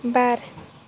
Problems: constant background noise